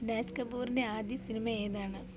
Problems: low volume